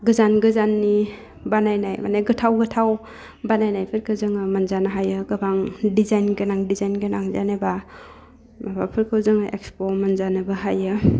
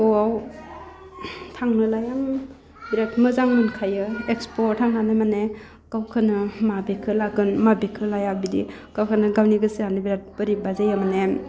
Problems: low volume